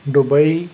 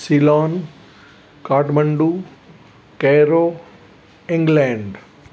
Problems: constant background noise